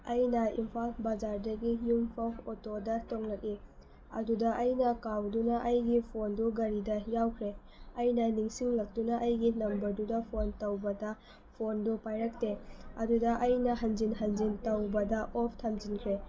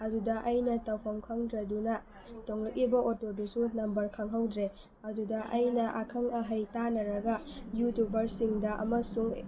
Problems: constant background noise